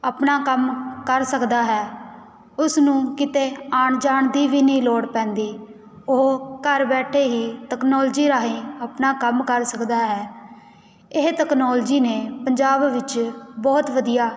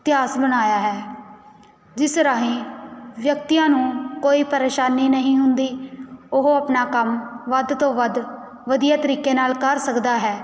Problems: background sounds at intervals